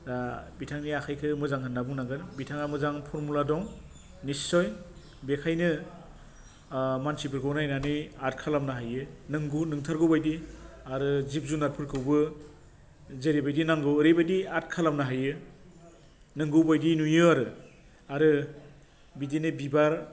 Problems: low volume